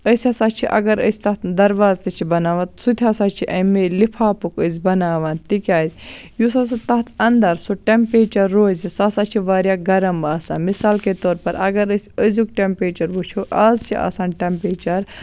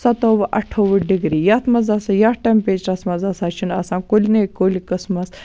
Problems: background sounds at intervals